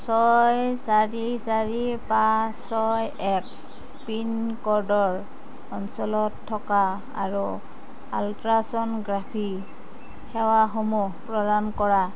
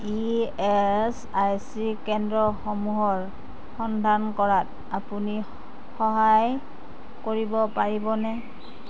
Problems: constant background noise